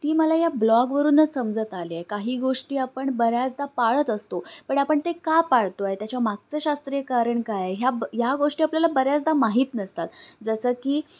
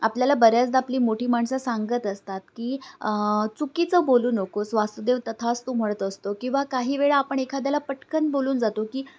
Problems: none marked